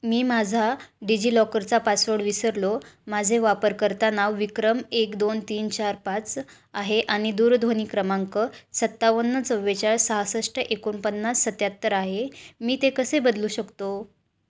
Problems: low volume